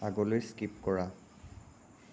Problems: constant background noise